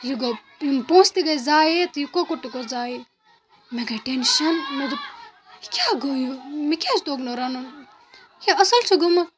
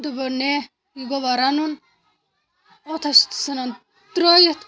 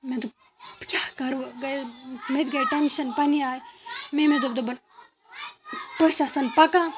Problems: constant background noise